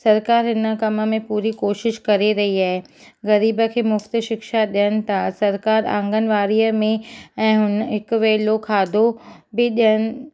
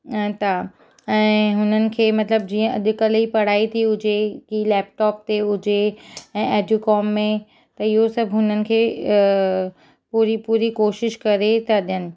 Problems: none marked